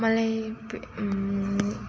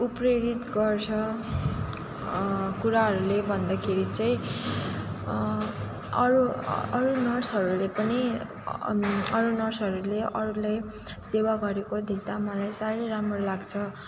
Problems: background sounds at intervals